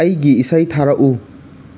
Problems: none marked